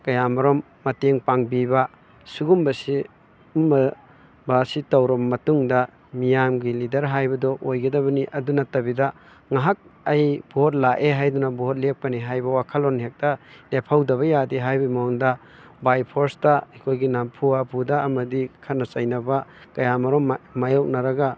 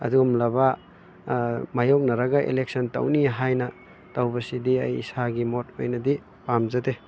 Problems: constant background noise